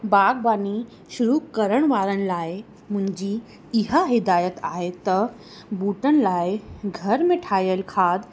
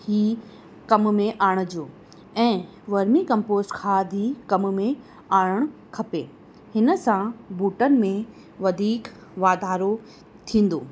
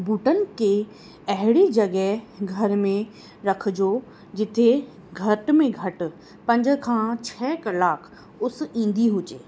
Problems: constant background noise